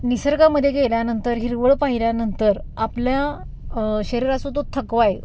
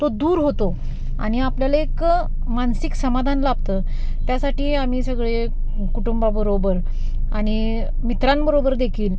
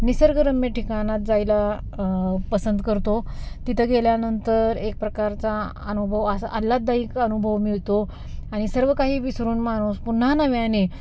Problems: constant background noise